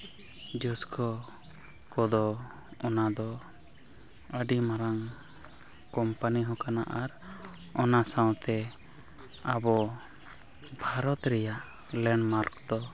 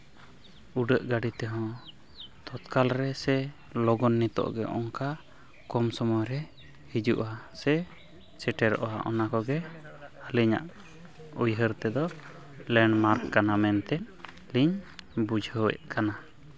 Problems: background sounds at intervals, continuous background conversations